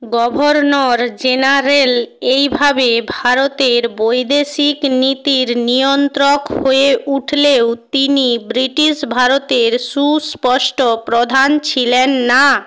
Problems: constant background noise